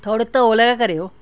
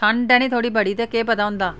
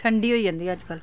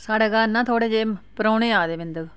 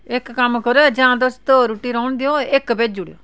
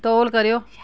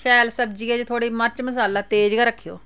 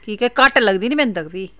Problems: none marked